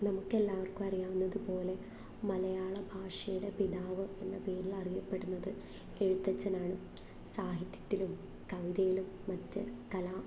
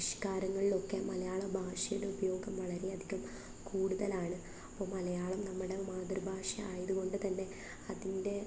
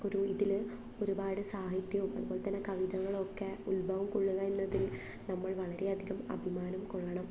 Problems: background sounds at intervals, low volume